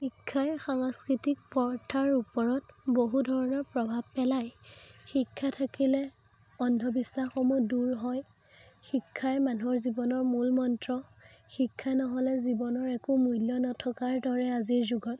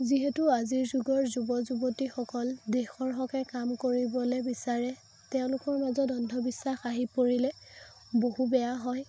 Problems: constant background noise